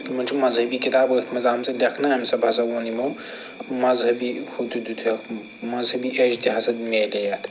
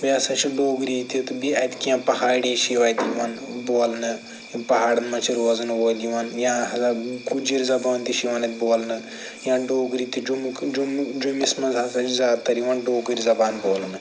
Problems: constant background noise